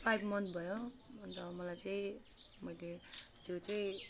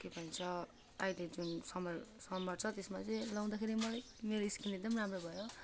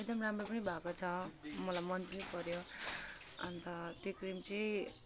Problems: background sounds at intervals